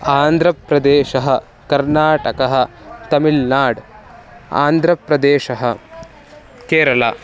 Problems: constant background noise, continuous background conversations